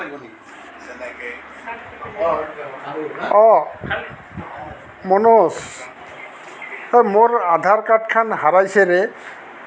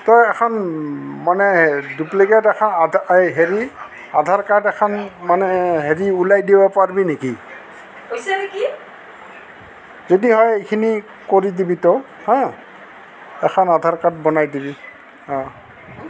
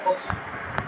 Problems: constant background noise, background conversations at intervals